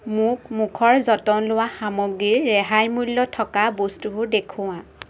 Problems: none marked